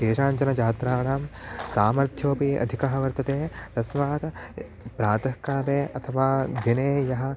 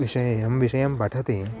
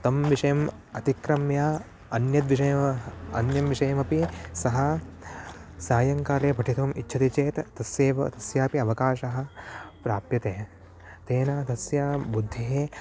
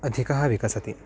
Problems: constant background noise